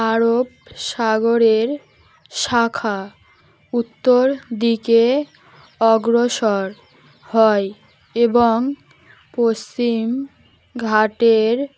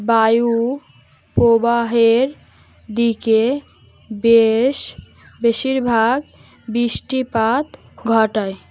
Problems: constant background noise